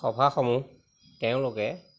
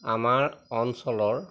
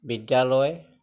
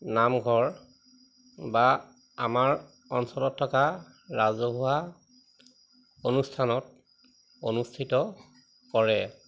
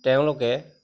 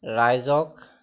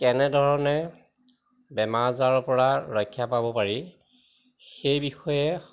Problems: constant background noise